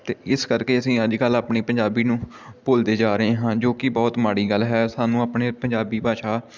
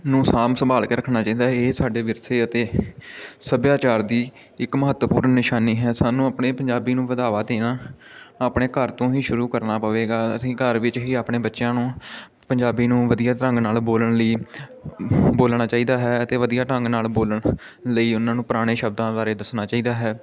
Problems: constant background noise, continuous background conversations